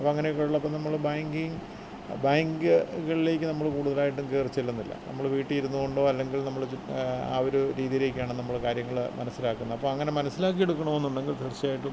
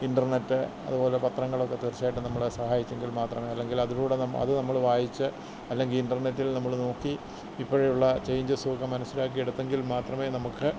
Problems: none marked